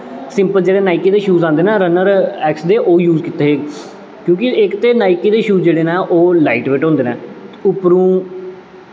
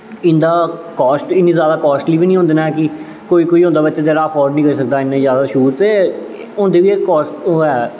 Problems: constant background noise, echo